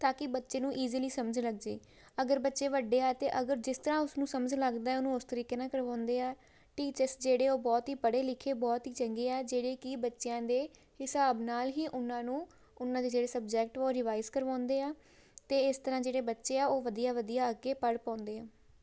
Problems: background sounds at intervals